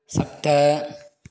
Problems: constant background noise